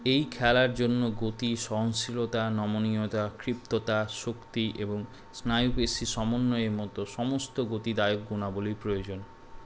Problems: none marked